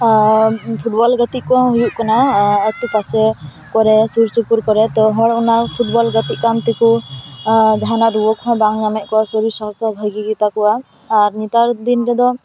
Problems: continuous background conversations